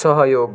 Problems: constant background noise